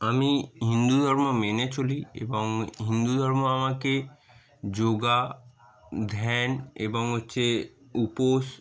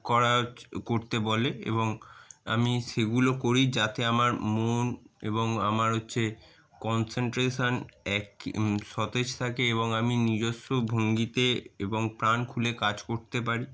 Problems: constant background noise